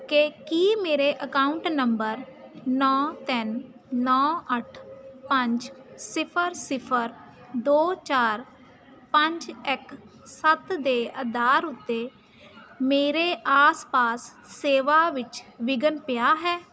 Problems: constant background noise